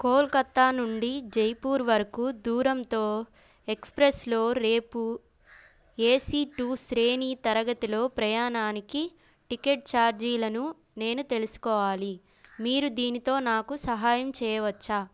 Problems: background sounds at intervals